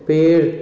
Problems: low volume